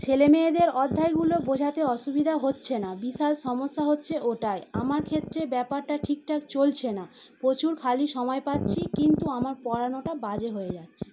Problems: background sounds at intervals